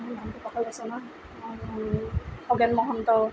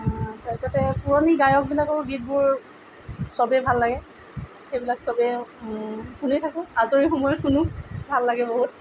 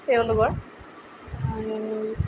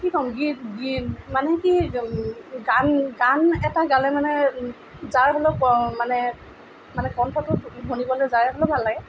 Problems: background sounds at intervals